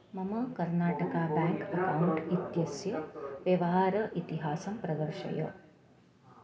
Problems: constant background noise, continuous background conversations